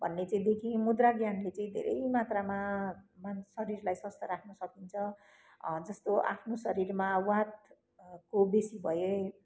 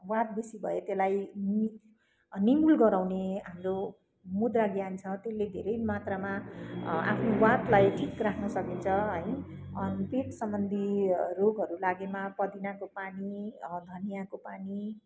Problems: none marked